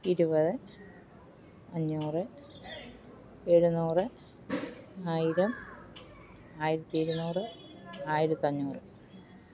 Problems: constant background noise, low volume